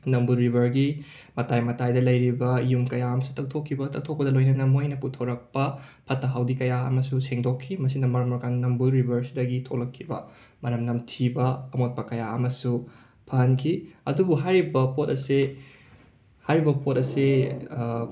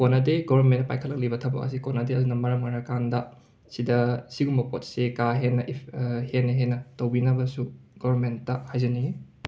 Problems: background sounds at intervals